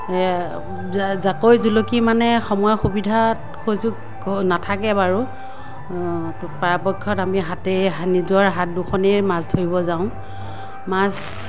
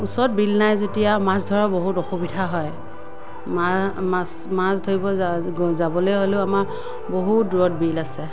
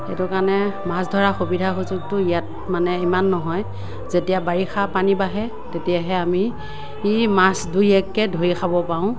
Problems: none marked